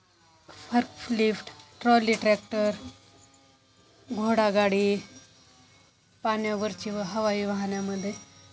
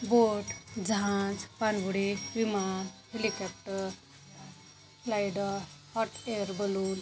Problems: constant background noise, background conversations at intervals